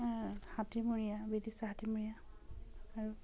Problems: none marked